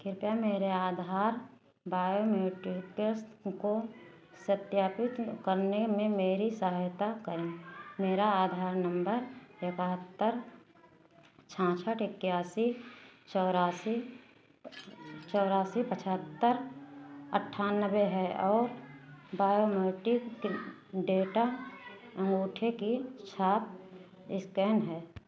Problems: none marked